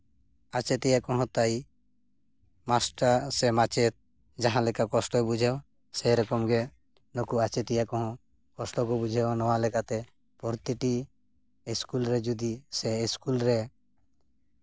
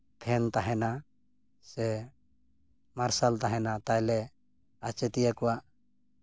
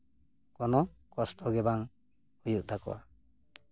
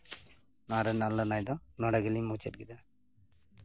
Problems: none marked